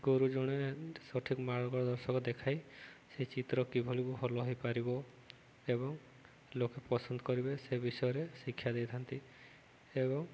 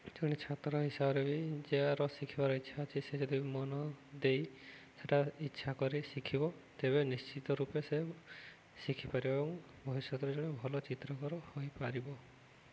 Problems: none marked